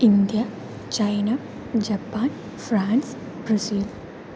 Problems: constant background noise, low volume